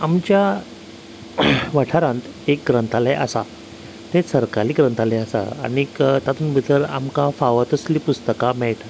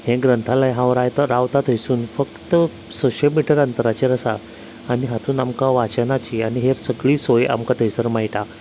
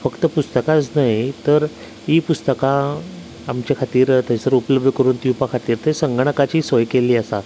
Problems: constant background noise, background conversations at intervals